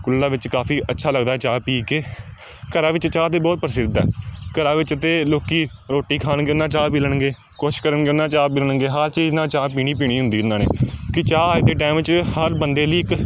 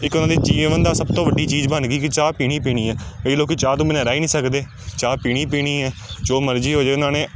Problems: background sounds at intervals